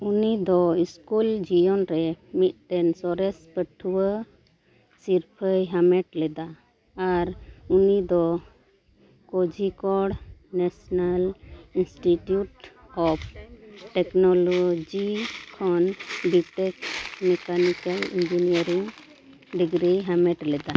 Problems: background conversations at intervals